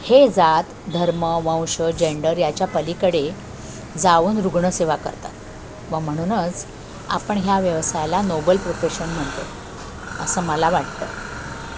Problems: constant background noise